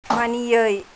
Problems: constant background noise